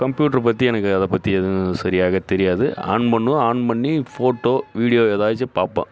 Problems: none marked